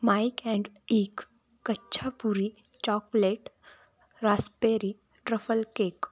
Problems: constant background noise, continuous background conversations